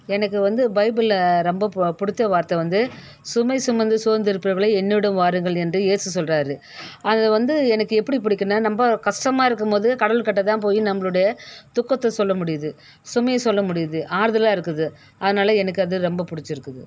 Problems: none marked